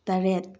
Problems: low volume